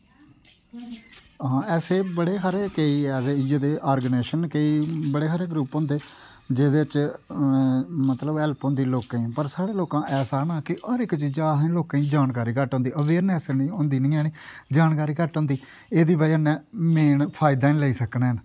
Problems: none marked